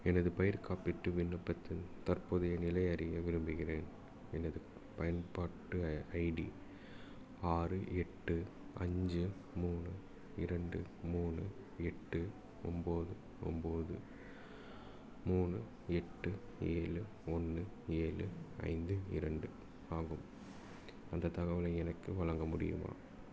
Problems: low volume